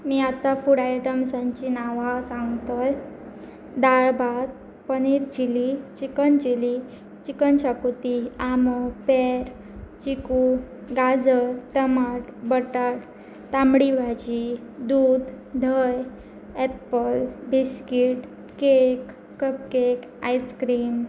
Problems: none marked